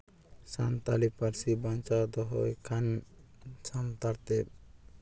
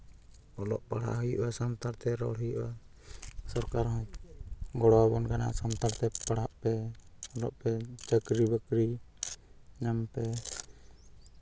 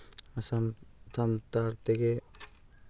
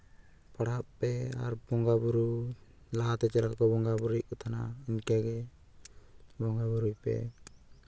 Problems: none marked